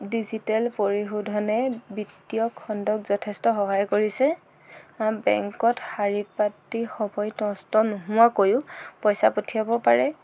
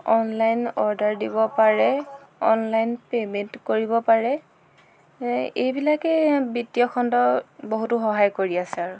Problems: background sounds at intervals